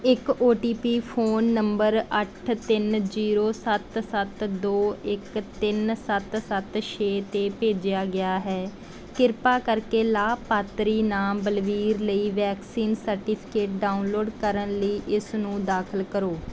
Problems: background sounds at intervals, background conversations at intervals